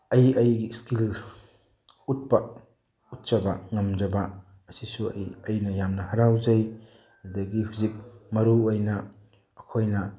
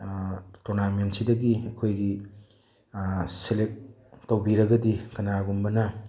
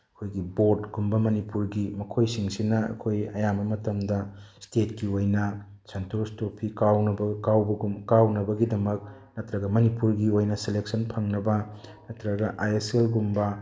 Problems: none marked